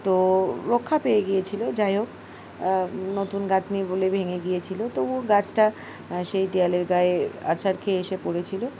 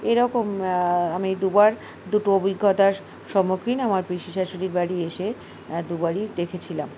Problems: background sounds at intervals